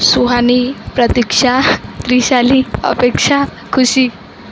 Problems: constant background noise